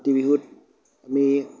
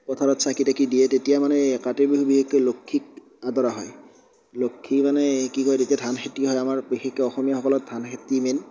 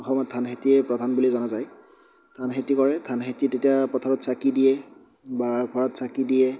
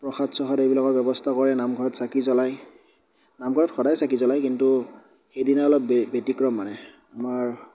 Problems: none marked